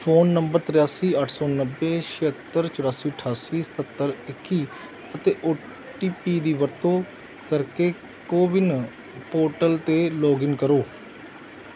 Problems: background sounds at intervals